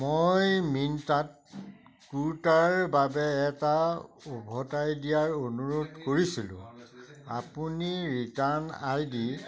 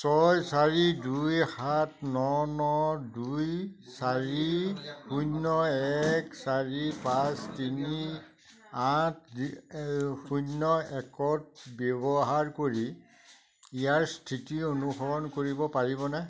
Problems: continuous background conversations